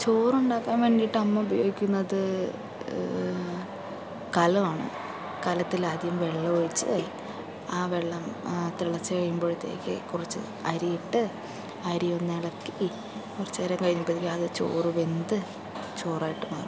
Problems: constant background noise